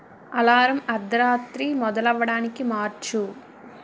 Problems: none marked